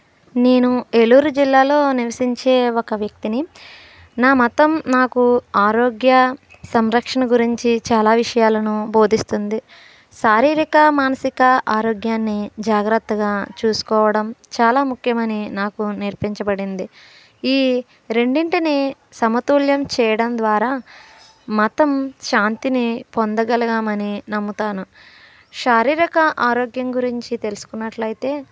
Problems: none marked